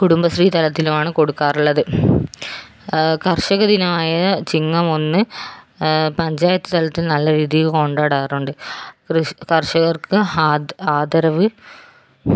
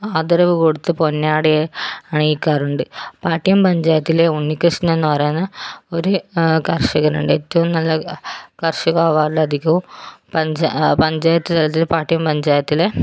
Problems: none marked